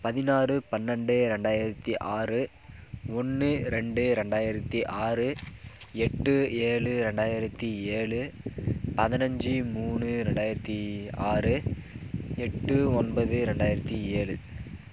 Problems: none marked